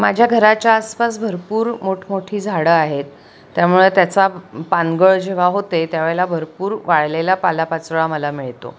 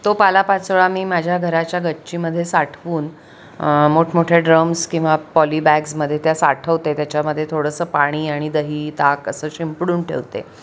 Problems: none marked